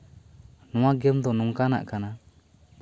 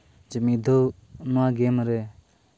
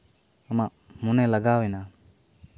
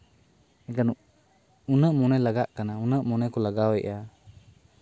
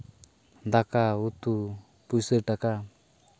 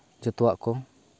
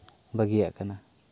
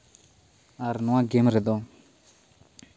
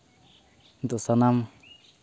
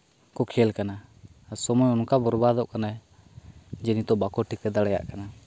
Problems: constant background noise